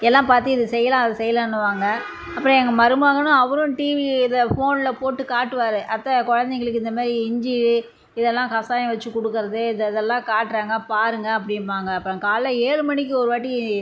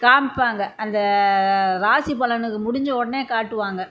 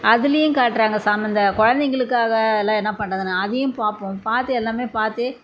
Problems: none marked